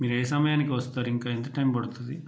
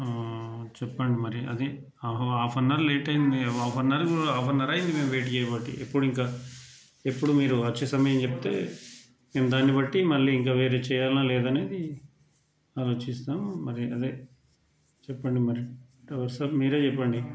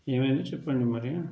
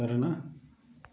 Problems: low volume